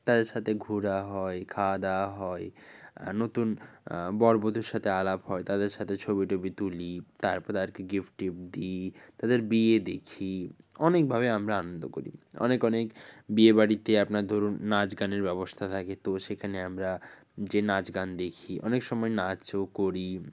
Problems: none marked